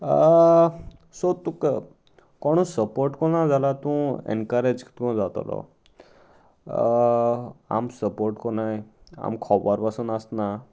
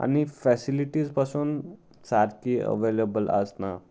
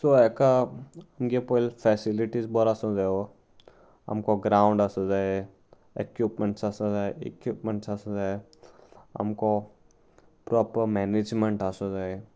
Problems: none marked